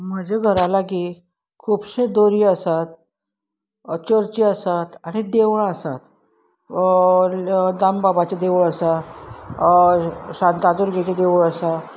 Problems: constant background noise